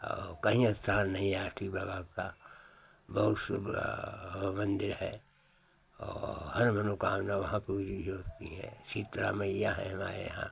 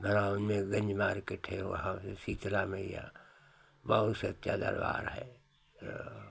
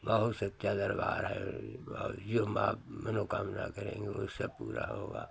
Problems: none marked